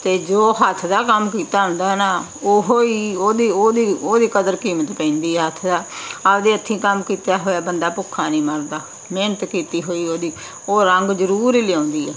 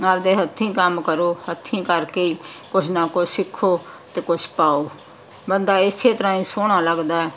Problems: constant background noise